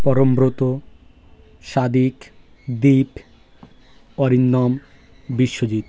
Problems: constant background noise, background conversations at intervals